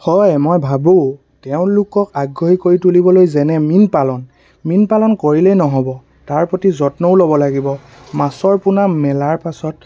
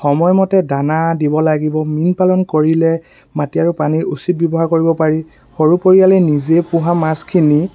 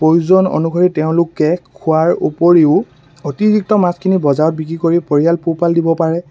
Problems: constant background noise